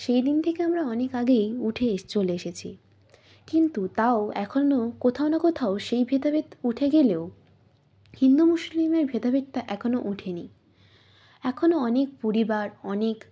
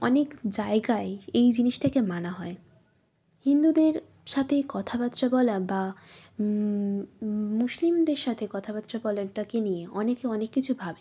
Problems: background sounds at intervals